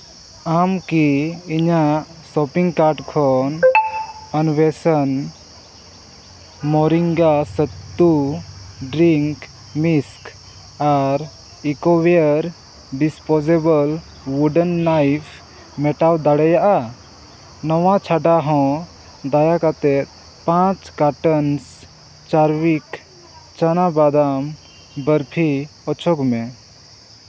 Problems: constant background noise, background conversations at intervals